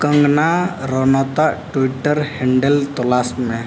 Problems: background sounds at intervals